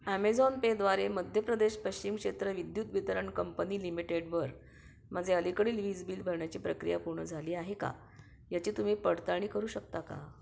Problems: background sounds at intervals